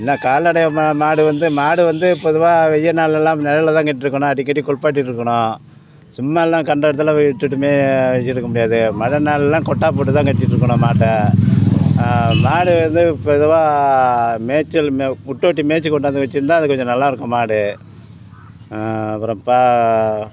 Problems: constant background noise, background conversations at intervals